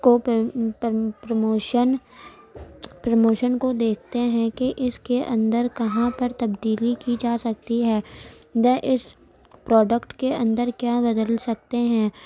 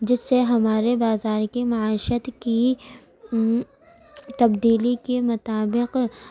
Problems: constant background noise